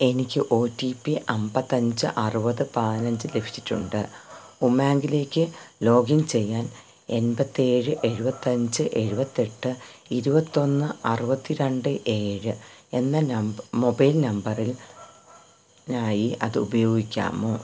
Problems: background sounds at intervals